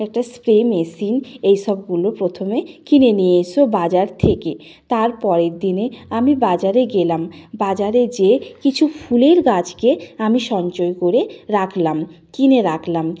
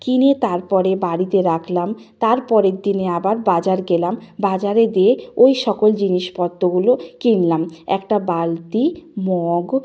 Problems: background sounds at intervals